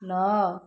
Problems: none marked